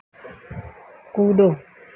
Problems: low volume